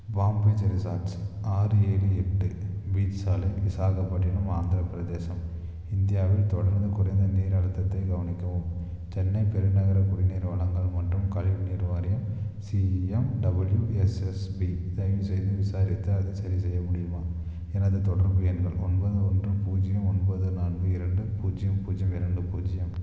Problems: constant background noise, low volume